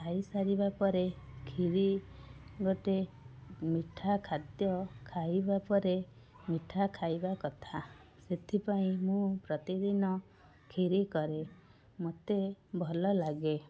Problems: constant background noise, continuous background conversations